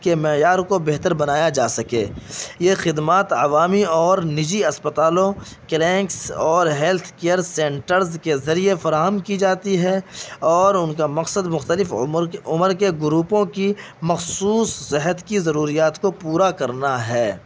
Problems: constant background noise